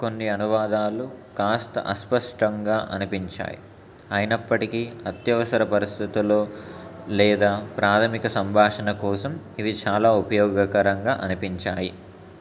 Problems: constant background noise